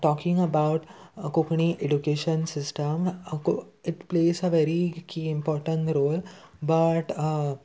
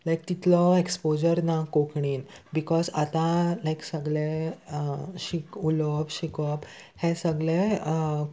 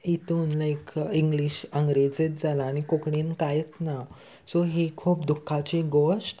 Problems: constant background noise